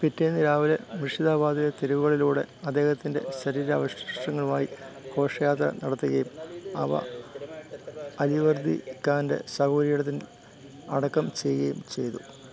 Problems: continuous background conversations